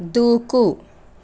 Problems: constant background noise